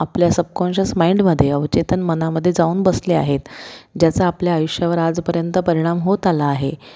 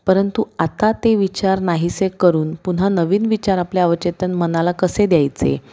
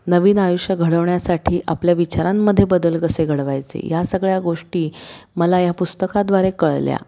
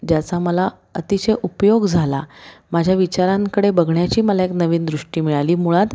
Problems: constant background noise